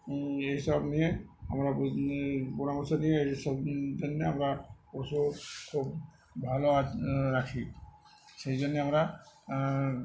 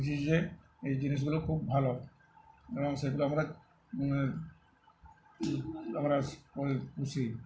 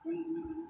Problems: none marked